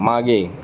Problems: background sounds at intervals